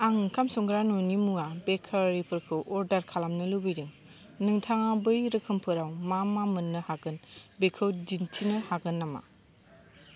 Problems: none marked